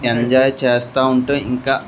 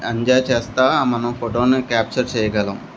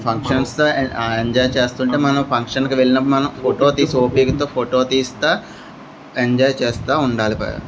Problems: constant background noise, background conversations at intervals